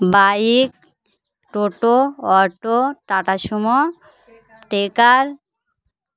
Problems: constant background noise, continuous background conversations